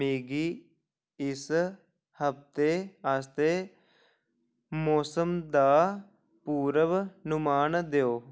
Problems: none marked